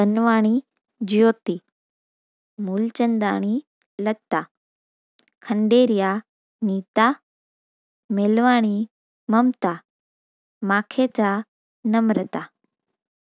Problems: none marked